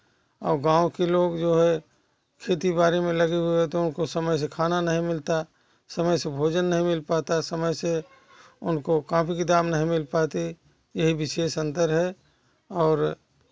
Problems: continuous background conversations